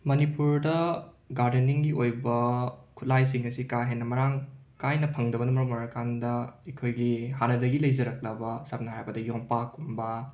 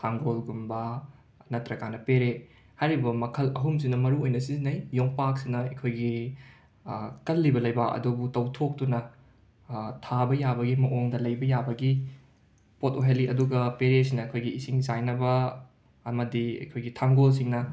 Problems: background sounds at intervals